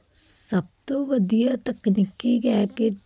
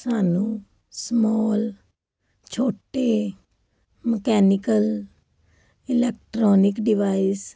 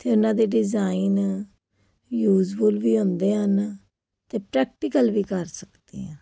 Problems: none marked